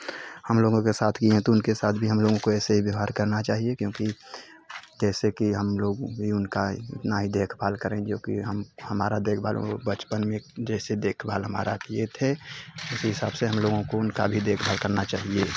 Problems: constant background noise, background conversations at intervals